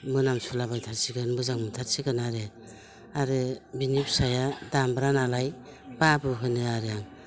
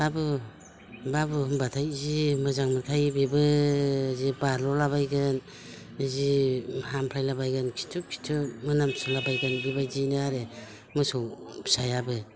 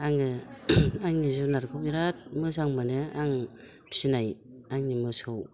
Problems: none marked